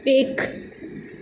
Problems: constant background noise